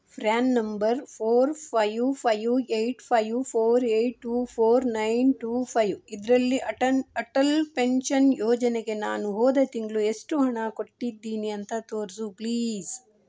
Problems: none marked